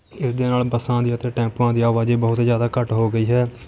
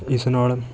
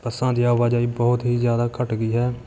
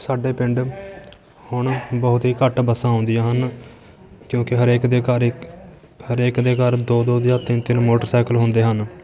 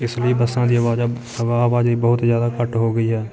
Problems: none marked